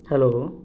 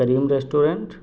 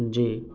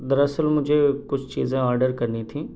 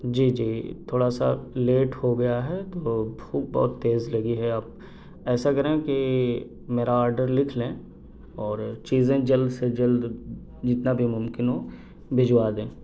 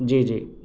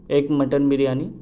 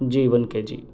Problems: constant background noise